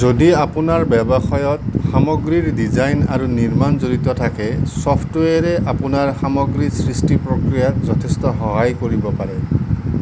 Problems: constant background noise